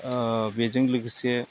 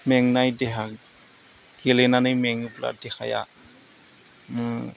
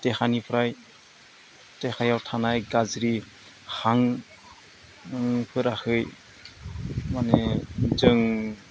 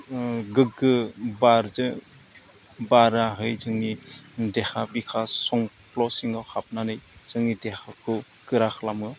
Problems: constant background noise